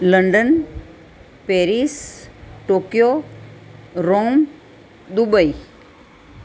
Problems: none marked